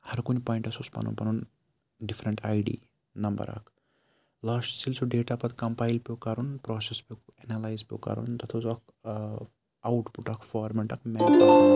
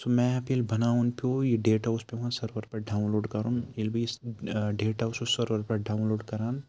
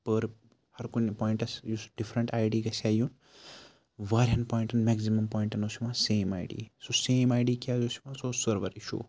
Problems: background sounds at intervals, low volume